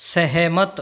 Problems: none marked